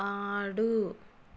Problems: none marked